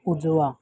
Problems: none marked